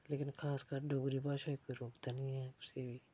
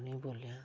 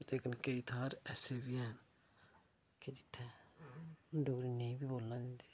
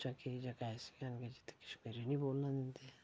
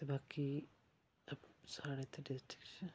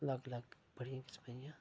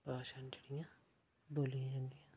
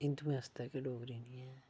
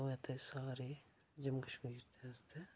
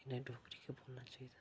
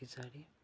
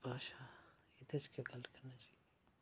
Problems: low volume